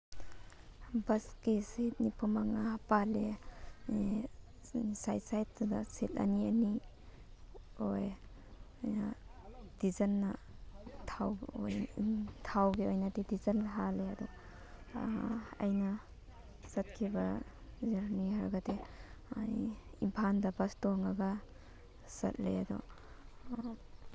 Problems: background sounds at intervals